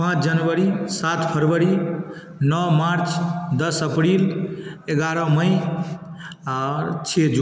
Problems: constant background noise